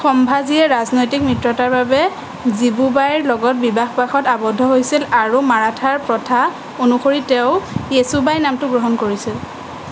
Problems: none marked